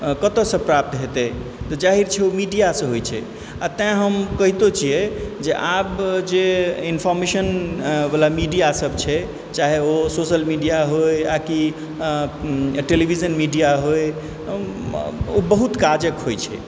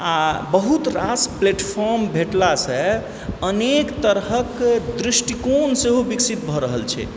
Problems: background sounds at intervals